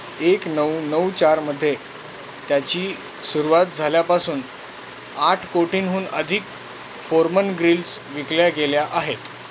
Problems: constant background noise